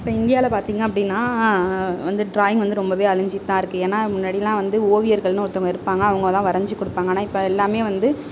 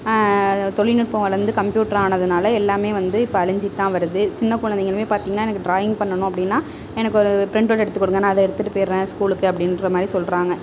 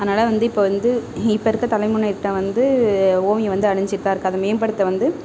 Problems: background sounds at intervals